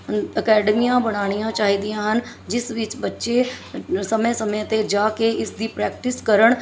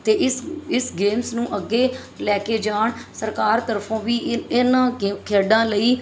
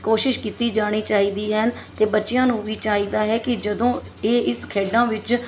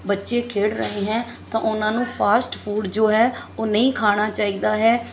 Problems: background sounds at intervals